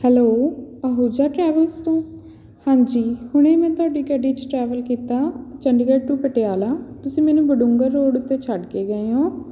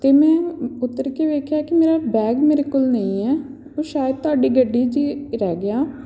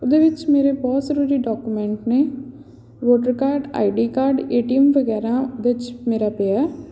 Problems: none marked